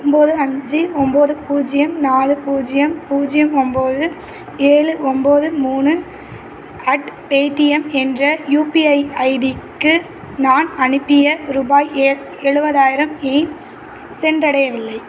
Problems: constant background noise